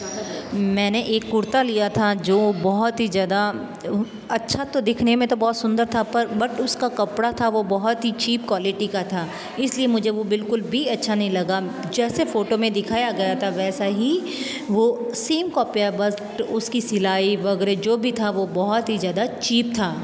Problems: background sounds at intervals